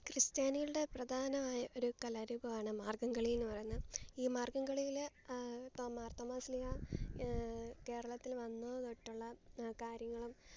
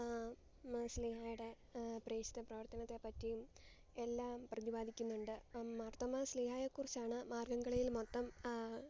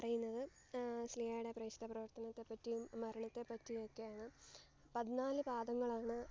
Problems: low volume